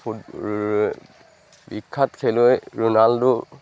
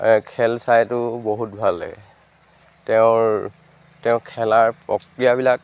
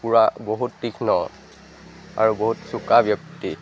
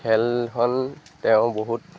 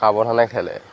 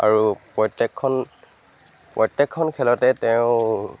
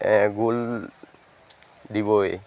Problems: background sounds at intervals